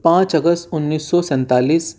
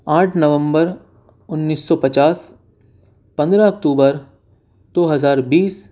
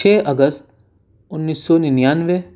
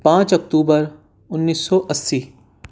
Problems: none marked